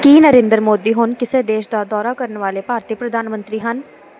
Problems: constant background noise